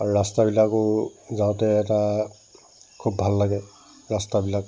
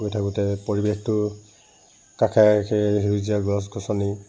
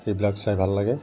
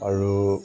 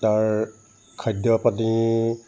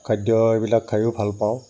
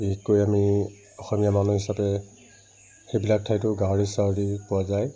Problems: constant background noise